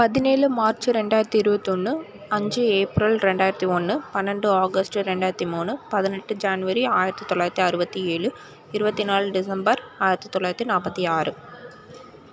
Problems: constant background noise